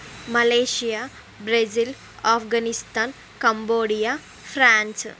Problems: constant background noise